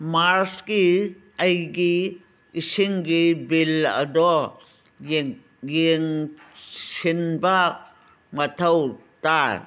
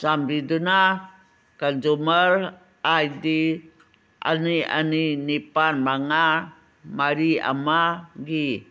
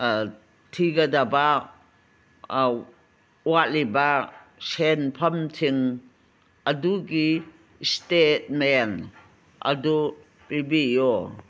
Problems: background sounds at intervals